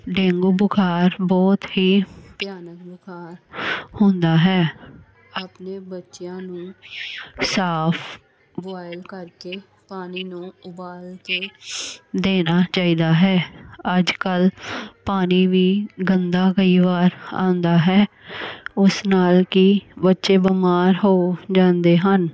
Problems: constant background noise